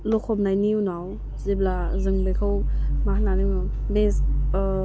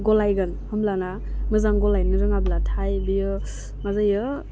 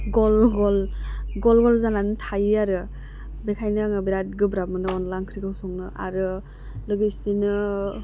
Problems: constant background noise